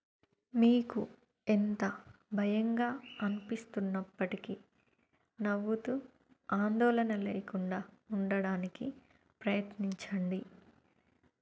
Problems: low volume